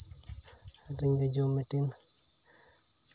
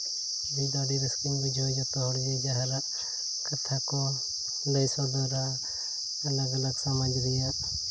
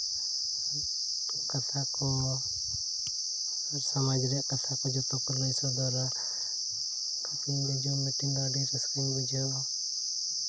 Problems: constant background noise